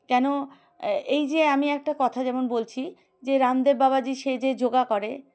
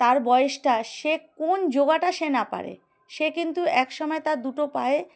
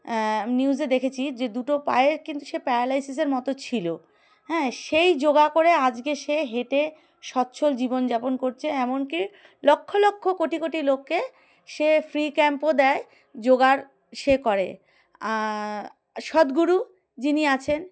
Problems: background sounds at intervals